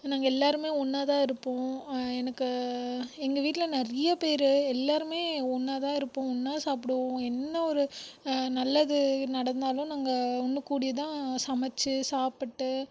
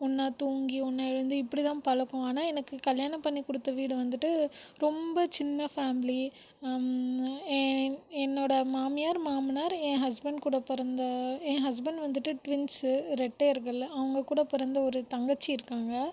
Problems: background sounds at intervals